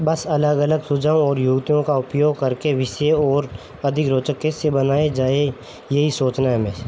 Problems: constant background noise